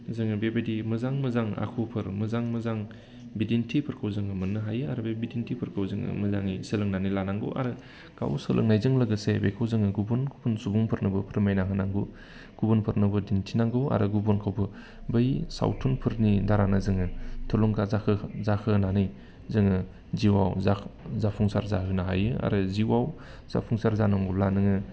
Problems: constant background noise